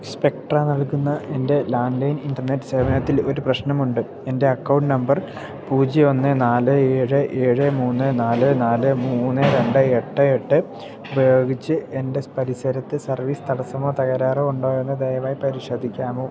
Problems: background sounds at intervals